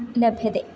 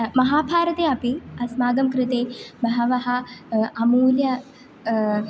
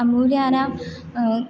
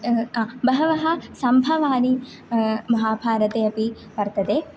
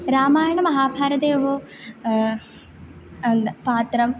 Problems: none marked